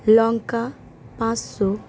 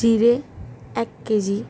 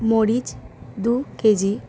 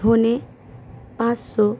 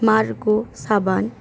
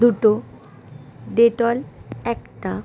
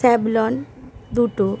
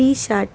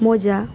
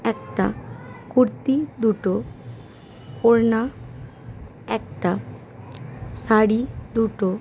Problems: constant background noise